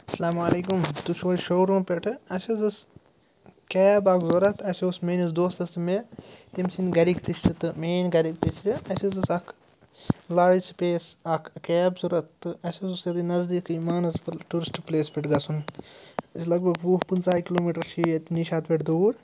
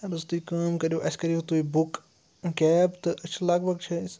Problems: none marked